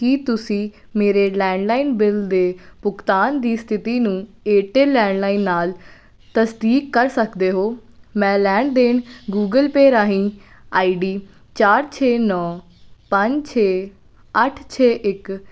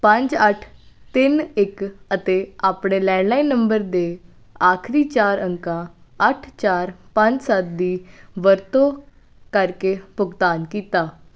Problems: none marked